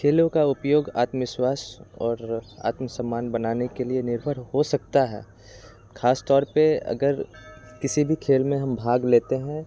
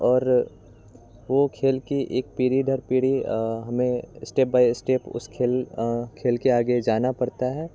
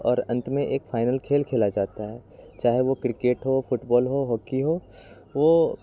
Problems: none marked